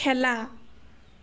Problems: none marked